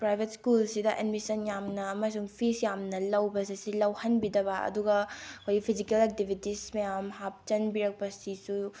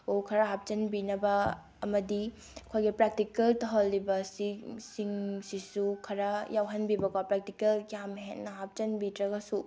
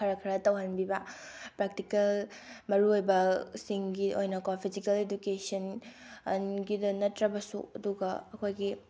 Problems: none marked